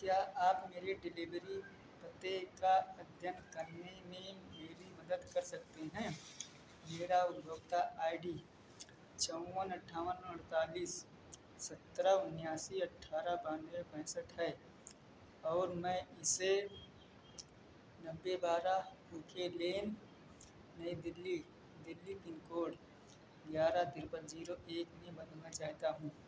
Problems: none marked